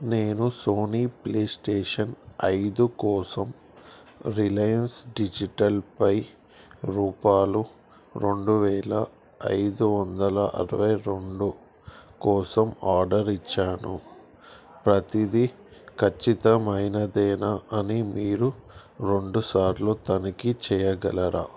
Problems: background sounds at intervals